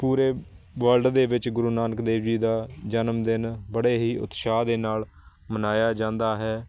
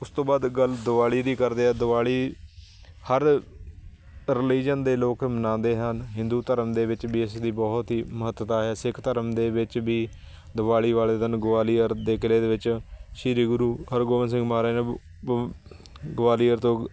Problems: constant background noise